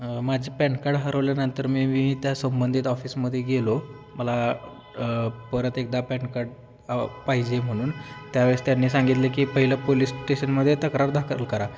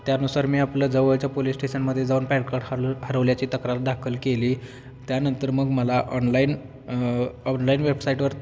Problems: constant background noise